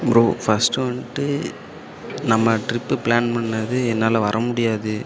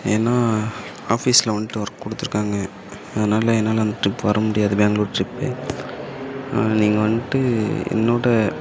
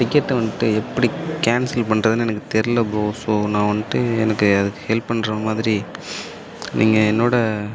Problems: constant background noise